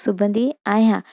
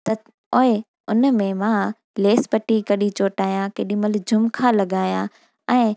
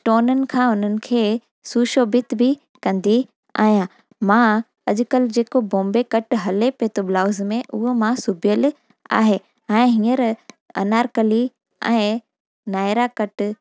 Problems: none marked